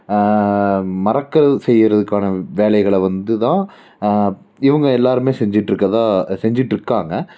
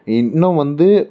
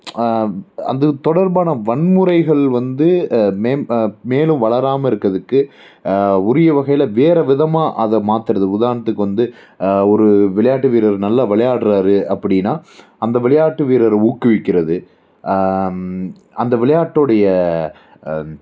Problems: none marked